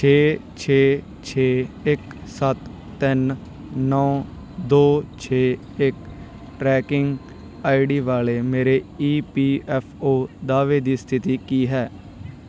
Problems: background sounds at intervals